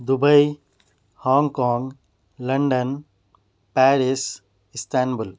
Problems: background sounds at intervals